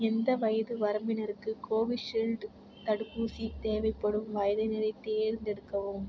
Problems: constant background noise